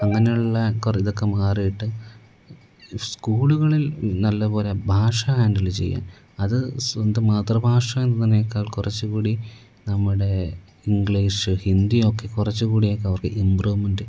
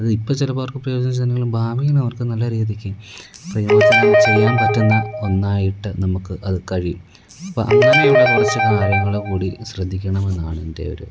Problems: background sounds at intervals, low volume